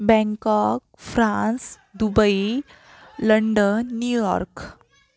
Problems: background sounds at intervals, background conversations at intervals